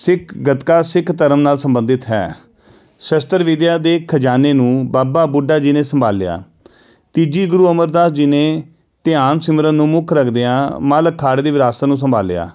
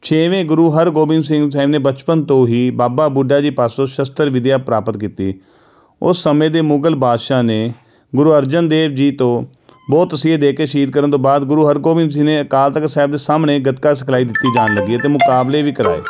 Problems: background sounds at intervals